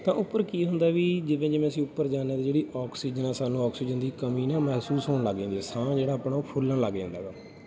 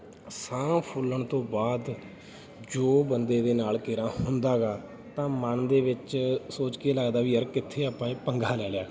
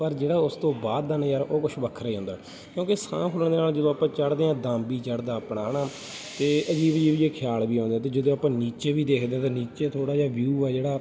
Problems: background sounds at intervals